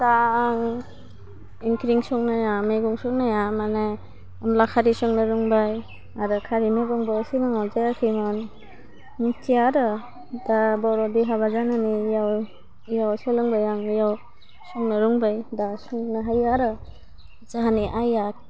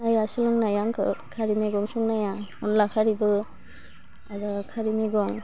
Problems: constant background noise